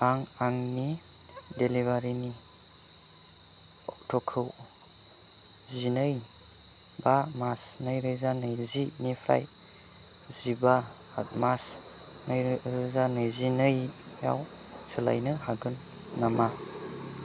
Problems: none marked